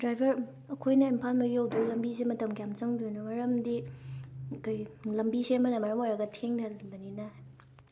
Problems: constant background noise